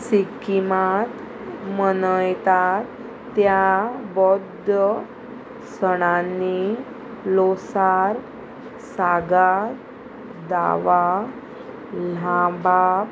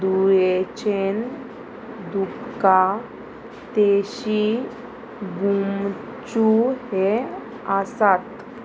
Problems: constant background noise